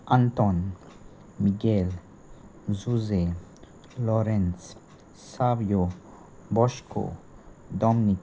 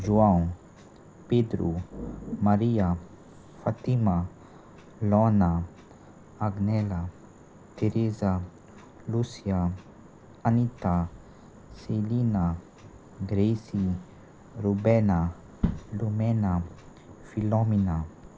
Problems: none marked